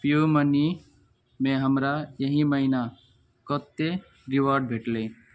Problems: none marked